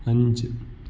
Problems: none marked